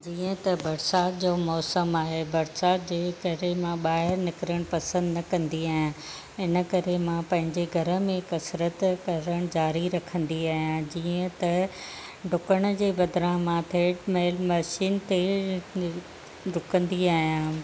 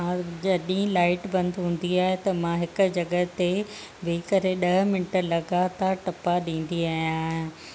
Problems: none marked